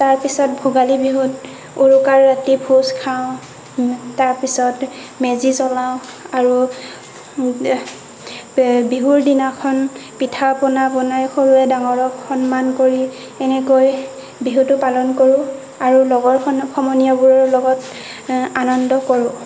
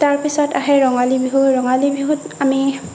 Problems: constant background noise